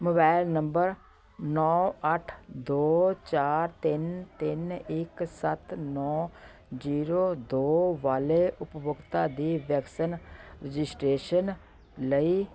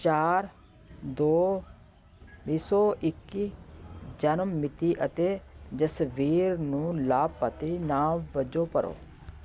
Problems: background sounds at intervals, continuous background conversations